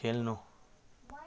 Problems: none marked